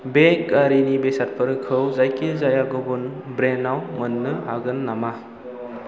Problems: none marked